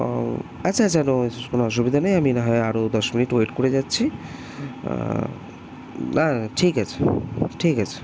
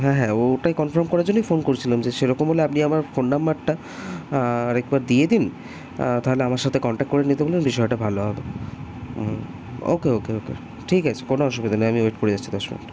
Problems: constant background noise